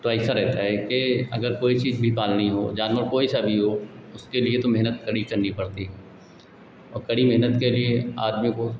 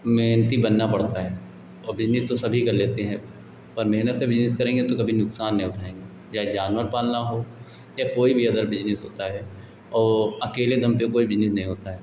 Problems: constant background noise, background conversations at intervals